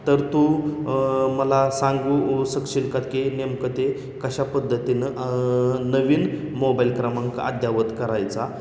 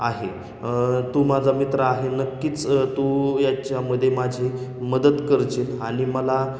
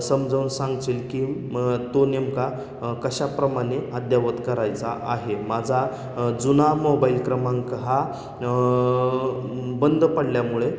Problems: constant background noise, echo